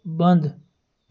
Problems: none marked